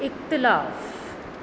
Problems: none marked